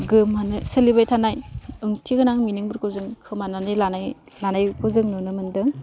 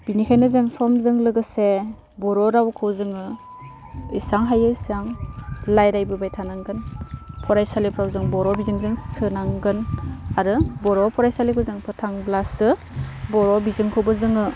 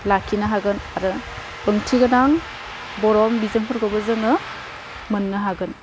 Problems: constant background noise